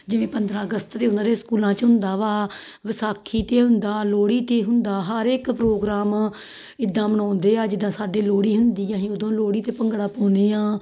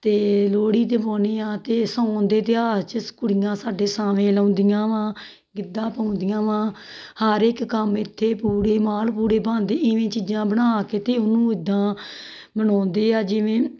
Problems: background sounds at intervals